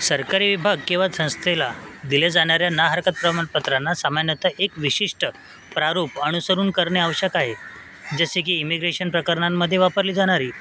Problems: constant background noise